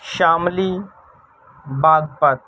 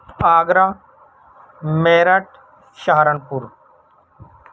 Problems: constant background noise, low volume